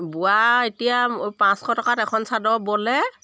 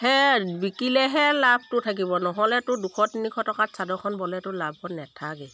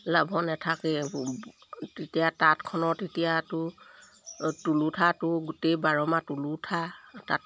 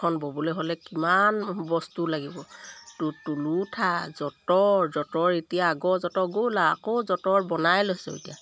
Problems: none marked